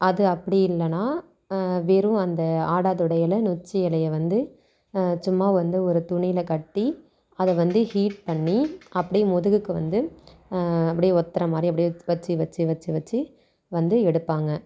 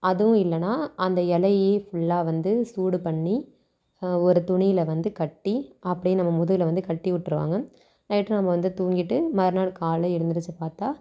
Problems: none marked